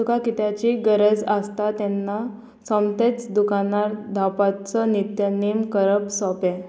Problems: constant background noise